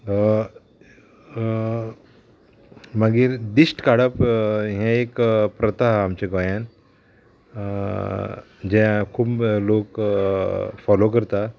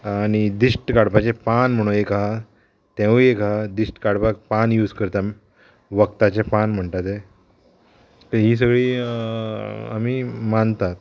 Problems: constant background noise